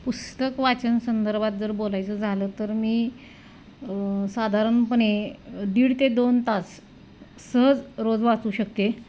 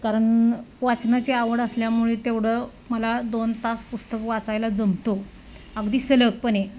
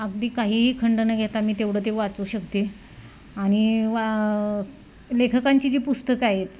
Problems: none marked